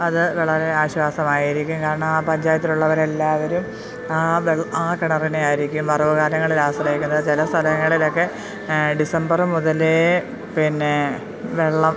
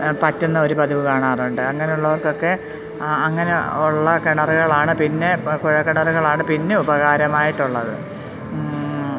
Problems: constant background noise